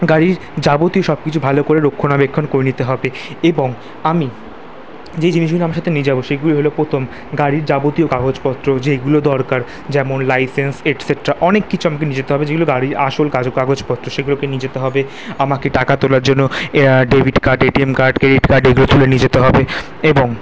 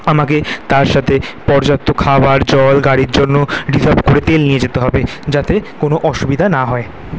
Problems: background sounds at intervals